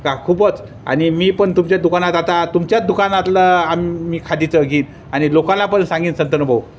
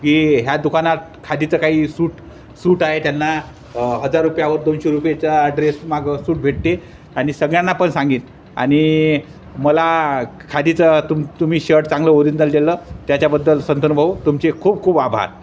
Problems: constant background noise